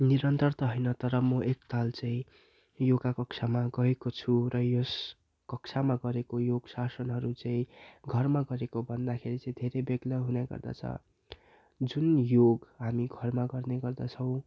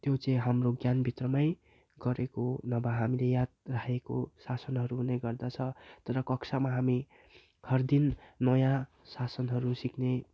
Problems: none marked